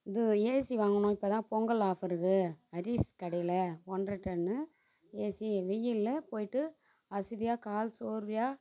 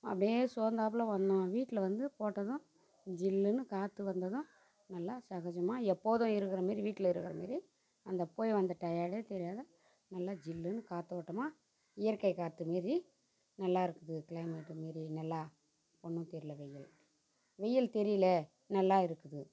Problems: constant background noise, low volume